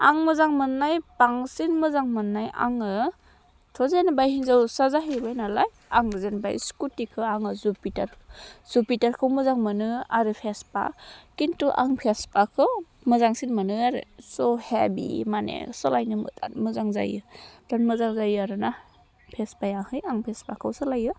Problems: none marked